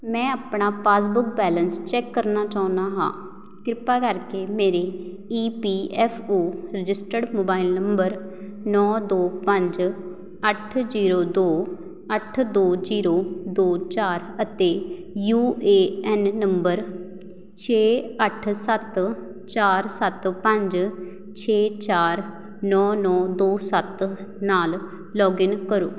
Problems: background sounds at intervals